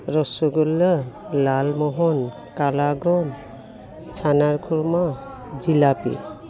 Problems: background sounds at intervals